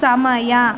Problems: background sounds at intervals